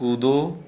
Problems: none marked